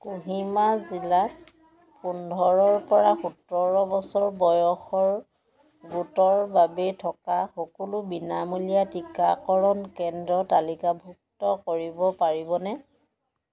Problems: continuous background conversations